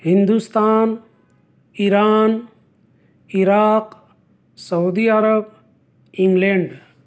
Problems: none marked